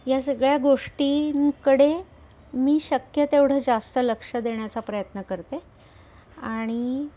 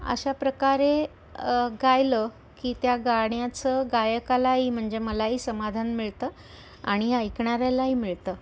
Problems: constant background noise, continuous background conversations